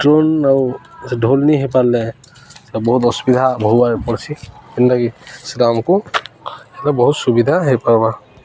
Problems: constant background noise, continuous background conversations